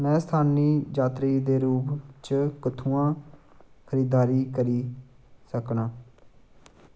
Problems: none marked